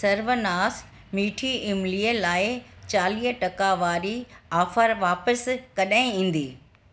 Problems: constant background noise, echo